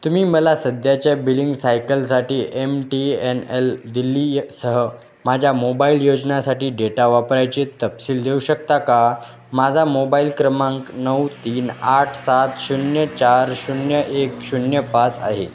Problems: none marked